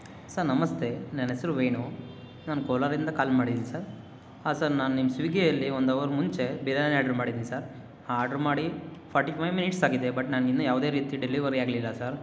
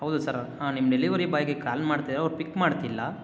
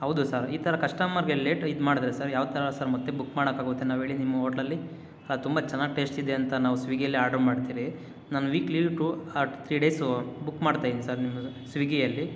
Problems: none marked